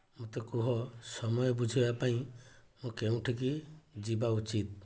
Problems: low volume